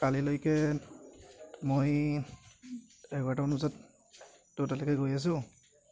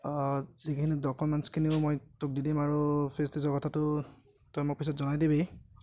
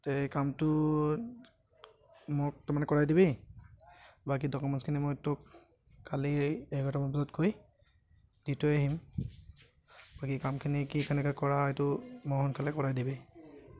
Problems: none marked